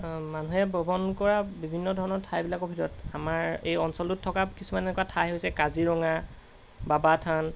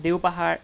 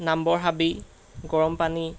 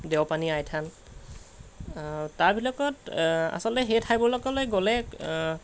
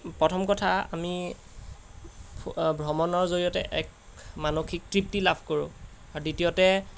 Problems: constant background noise